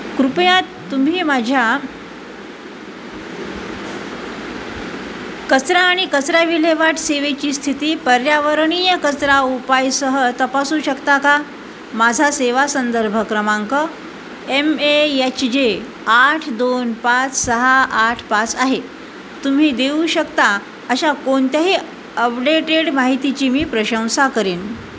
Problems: constant background noise